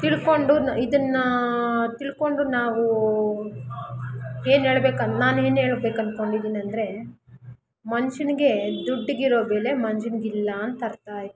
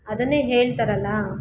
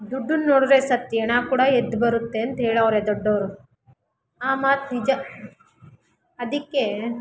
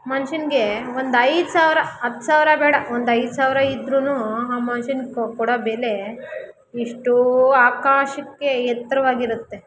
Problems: none marked